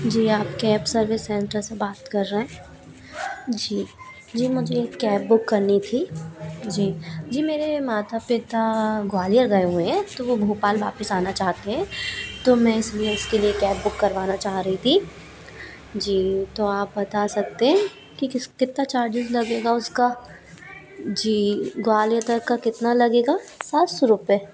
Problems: none marked